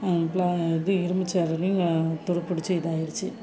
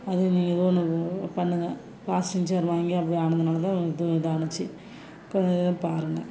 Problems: constant background noise